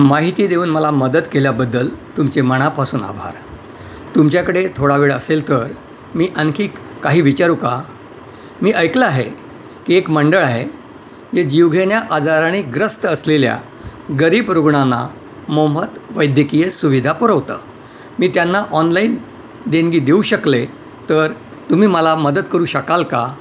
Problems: none marked